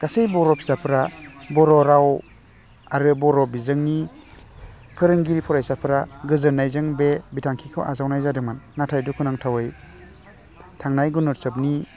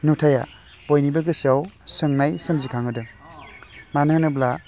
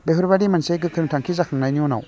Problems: constant background noise